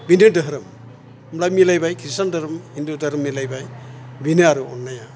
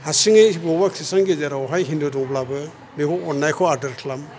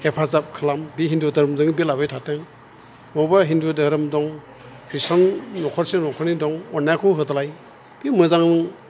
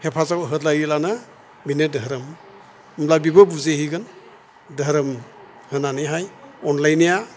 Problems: none marked